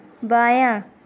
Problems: none marked